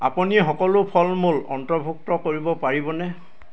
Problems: constant background noise